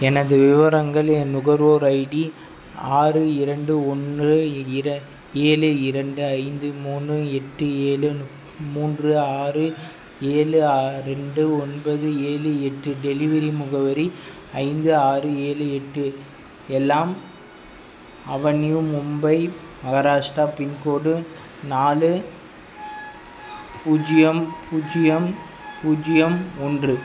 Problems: none marked